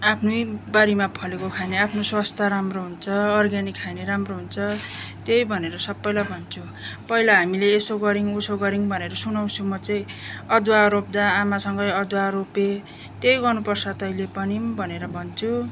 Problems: none marked